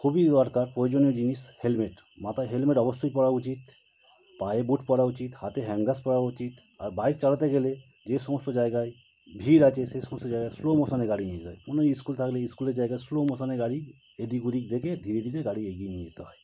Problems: constant background noise